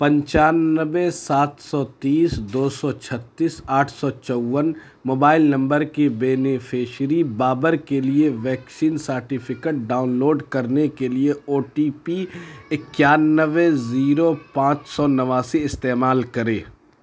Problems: constant background noise